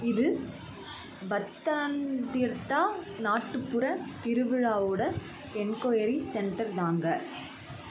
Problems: constant background noise, continuous background conversations